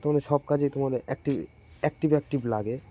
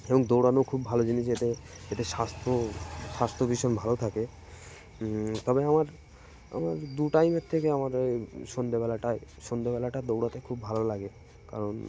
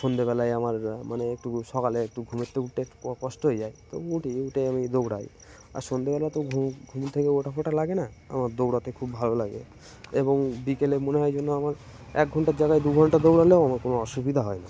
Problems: constant background noise, background conversations at intervals